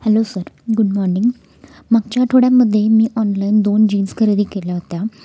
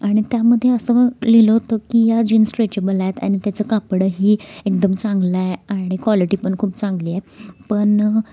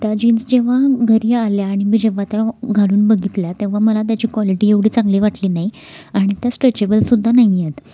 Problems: none marked